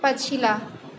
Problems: none marked